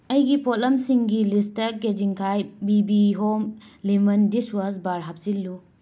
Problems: none marked